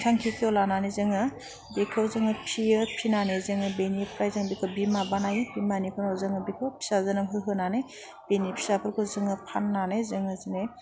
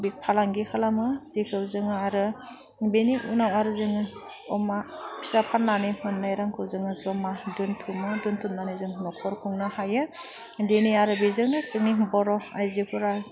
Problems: none marked